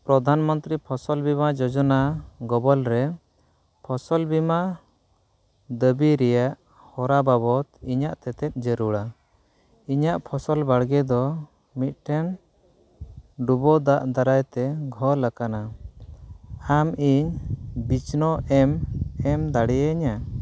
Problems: none marked